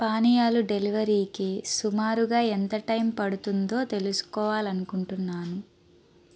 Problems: none marked